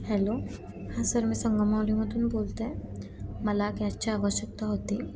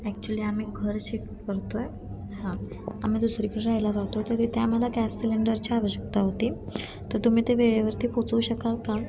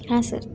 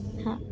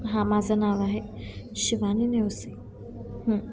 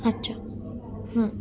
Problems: constant background noise